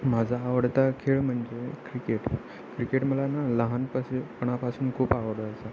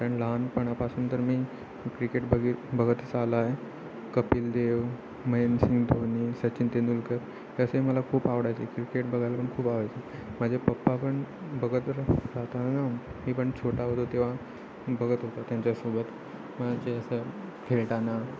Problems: constant background noise, continuous background conversations